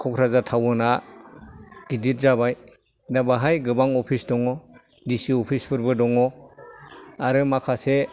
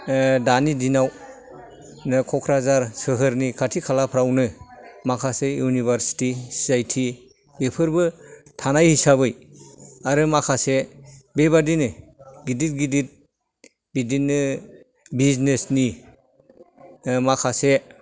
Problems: background sounds at intervals